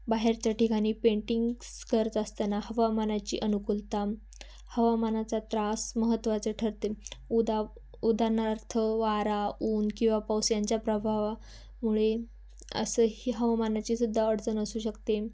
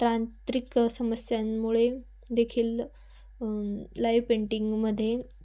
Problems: constant background noise, background conversations at intervals